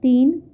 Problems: background sounds at intervals